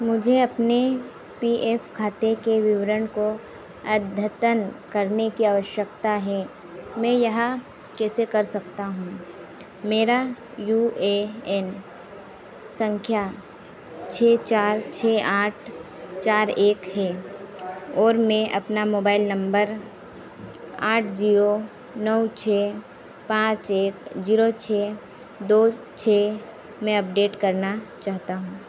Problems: none marked